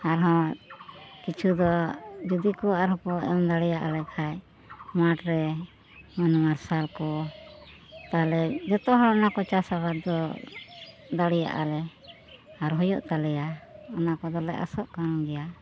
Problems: constant background noise